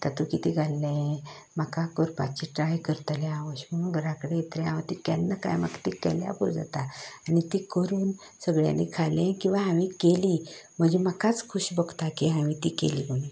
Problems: none marked